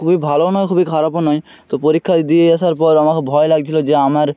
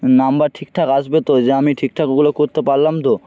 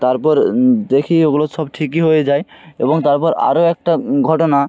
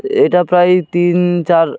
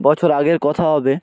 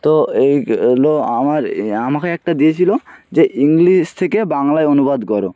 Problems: background sounds at intervals